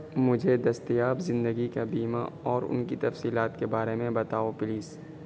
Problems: constant background noise